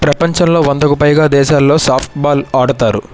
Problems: constant background noise